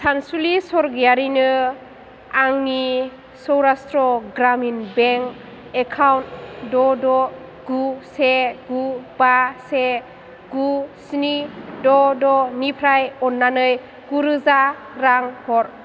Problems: low volume